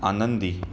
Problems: constant background noise